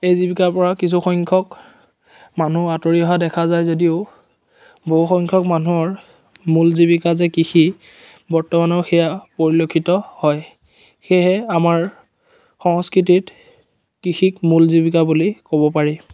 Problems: none marked